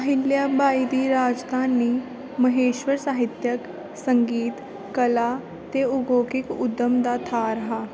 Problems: constant background noise